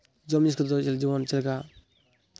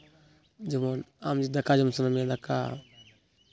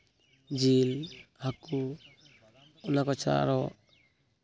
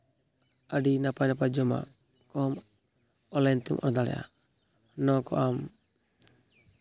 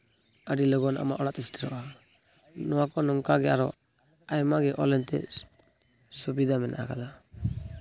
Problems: background sounds at intervals